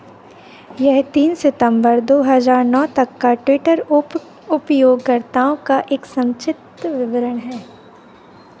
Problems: none marked